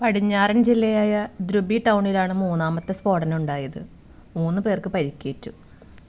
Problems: background sounds at intervals